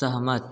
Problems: none marked